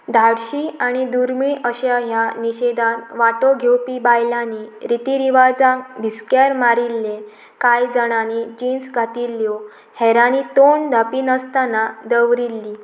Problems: constant background noise